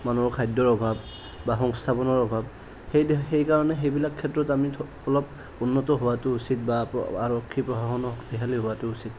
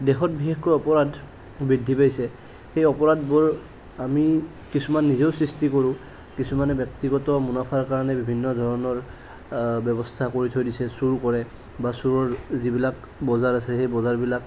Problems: none marked